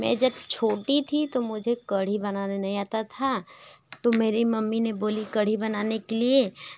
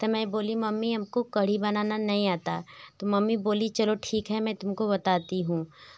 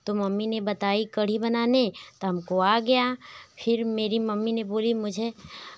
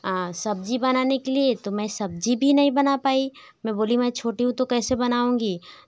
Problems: none marked